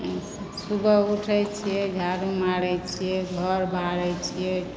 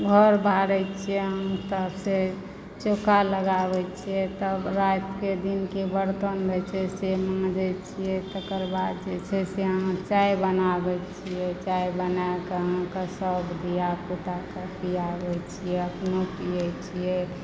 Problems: constant background noise